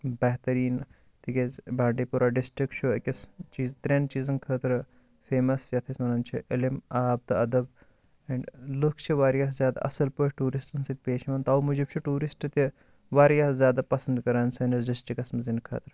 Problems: none marked